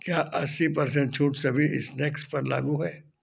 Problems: background sounds at intervals